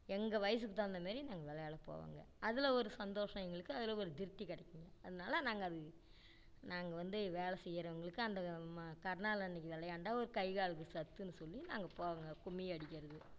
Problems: low volume